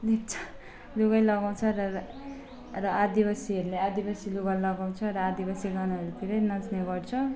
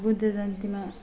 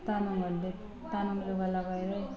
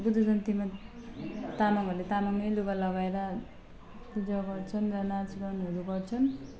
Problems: constant background noise, low volume